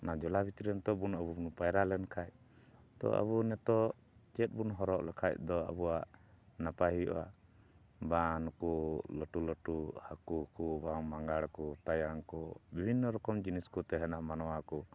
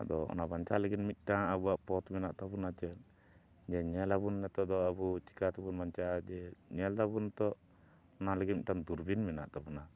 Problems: none marked